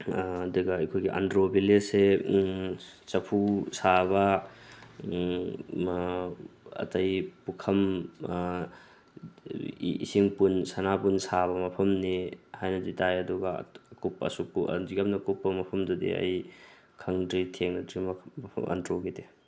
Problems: constant background noise